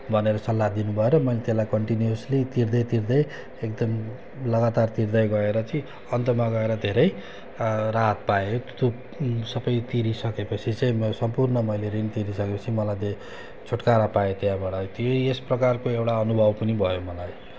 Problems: constant background noise